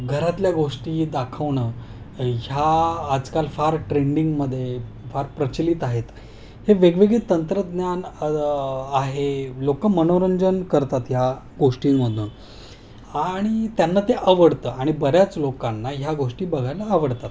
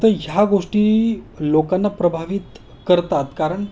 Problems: none marked